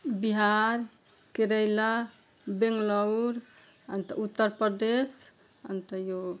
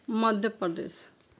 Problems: background sounds at intervals